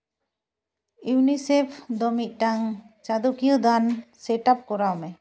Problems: none marked